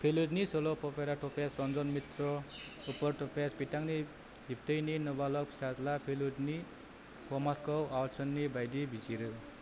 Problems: low volume